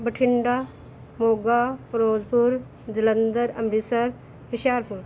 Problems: none marked